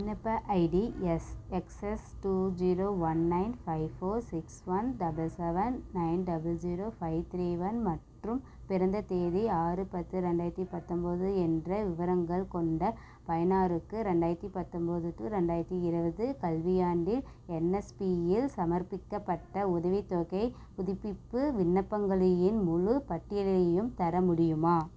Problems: none marked